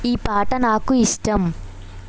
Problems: constant background noise